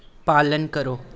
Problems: none marked